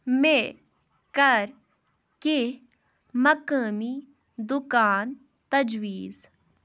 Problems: none marked